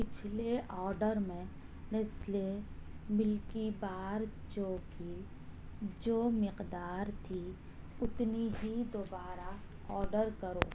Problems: none marked